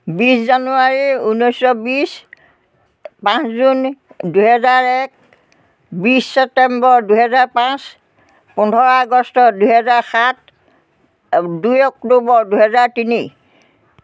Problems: background conversations at intervals